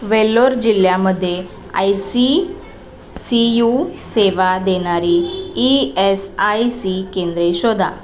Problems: constant background noise, continuous background conversations